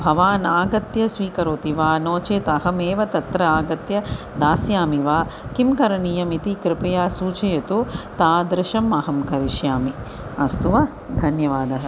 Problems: constant background noise